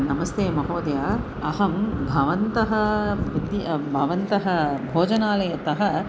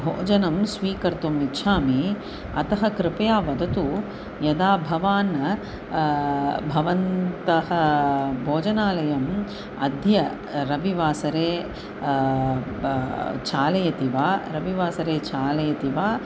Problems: constant background noise